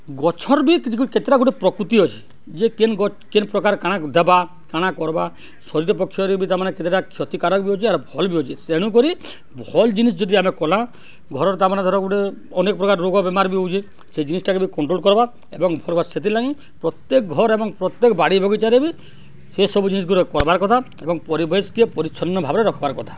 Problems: none marked